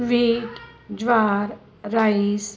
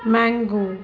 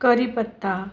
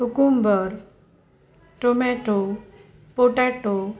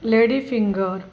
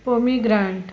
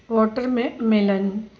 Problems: none marked